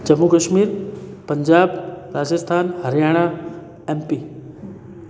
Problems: constant background noise, background conversations at intervals